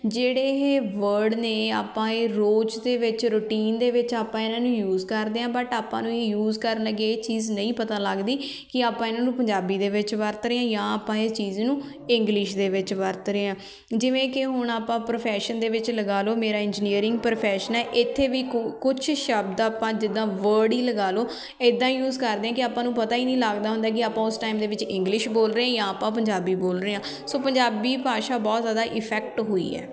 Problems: continuous background conversations